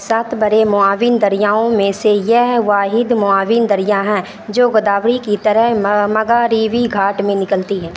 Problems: constant background noise